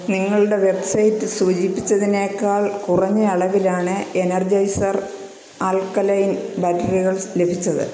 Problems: constant background noise